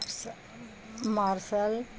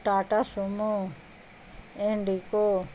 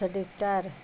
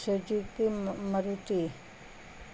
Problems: constant background noise